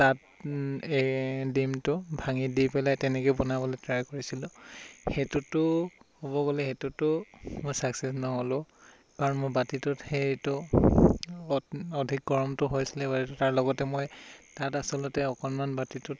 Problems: constant background noise